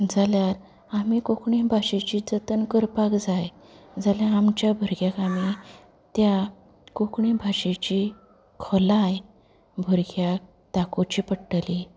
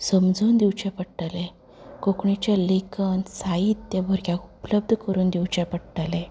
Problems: background sounds at intervals, background conversations at intervals